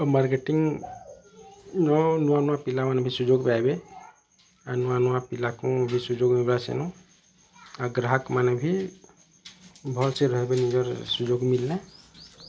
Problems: constant background noise, continuous background conversations